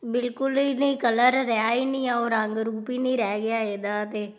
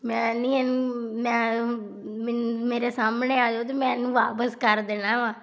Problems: background sounds at intervals